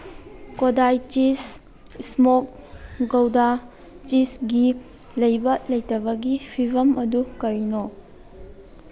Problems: background sounds at intervals